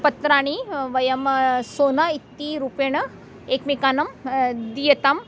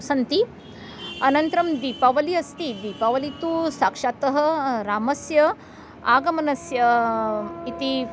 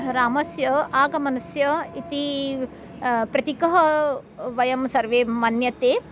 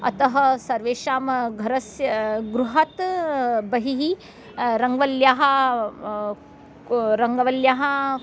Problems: background sounds at intervals